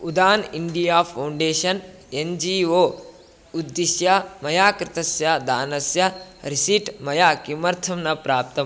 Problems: constant background noise